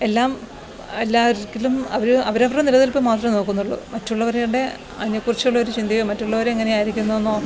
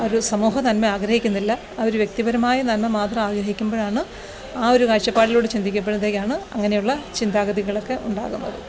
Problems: background sounds at intervals